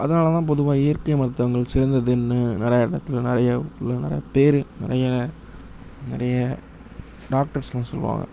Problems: low volume